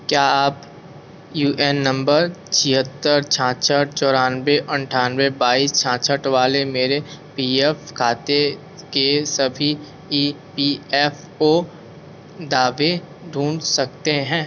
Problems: constant background noise